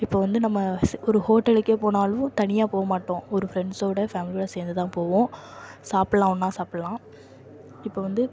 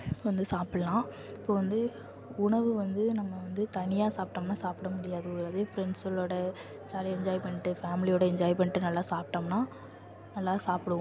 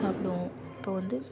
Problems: constant background noise